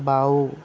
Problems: constant background noise